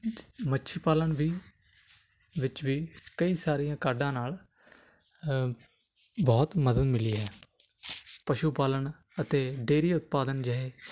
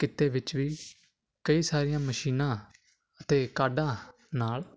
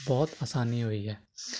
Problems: none marked